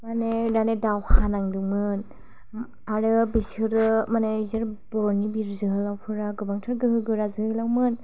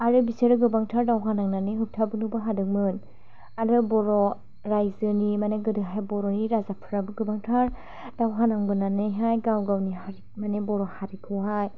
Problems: none marked